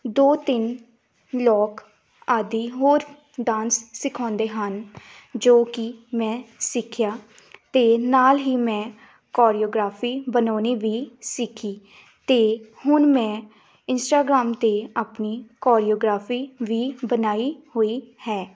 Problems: background sounds at intervals